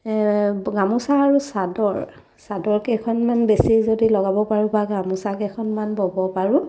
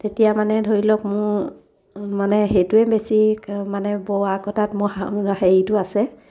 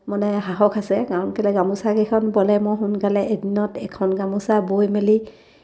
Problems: none marked